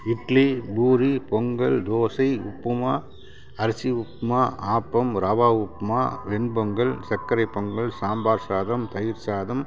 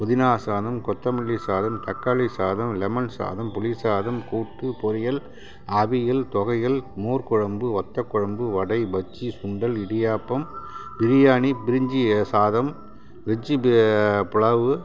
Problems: constant background noise